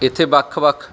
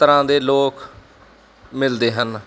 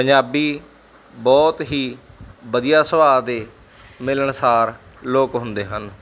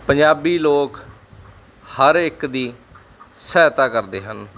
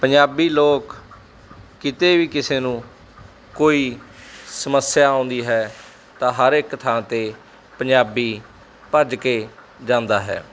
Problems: none marked